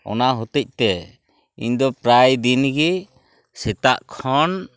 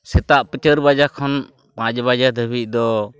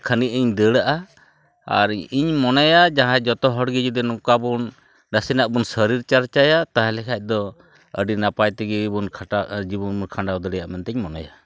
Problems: none marked